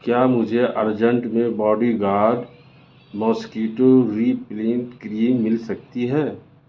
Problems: constant background noise